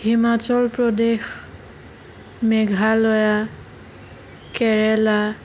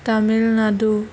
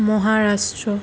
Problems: constant background noise